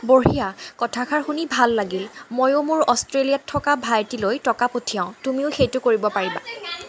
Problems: background conversations at intervals